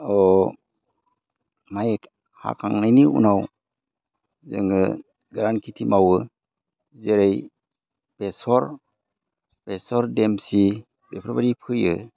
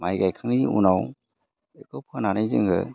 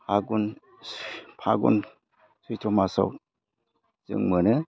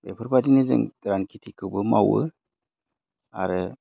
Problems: low volume